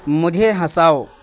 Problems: constant background noise